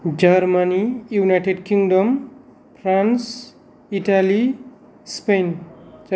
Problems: none marked